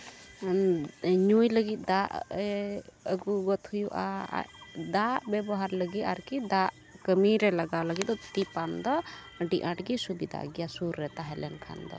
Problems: none marked